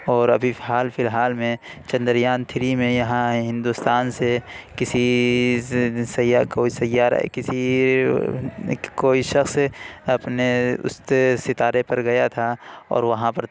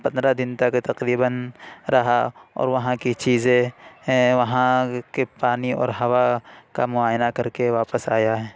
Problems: none marked